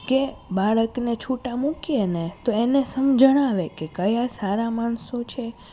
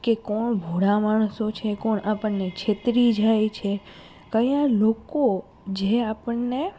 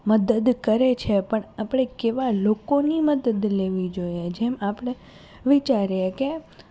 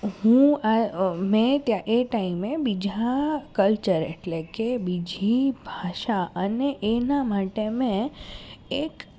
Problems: none marked